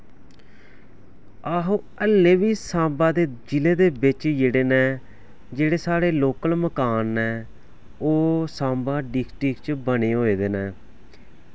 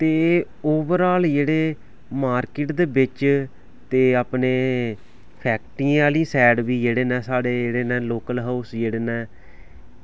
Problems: background sounds at intervals